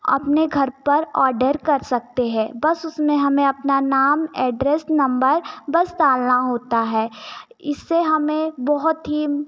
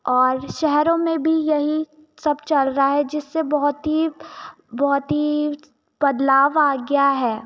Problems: none marked